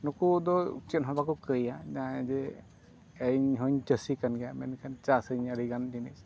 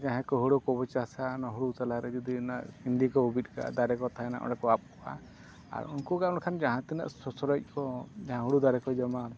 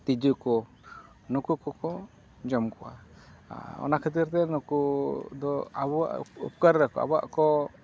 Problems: constant background noise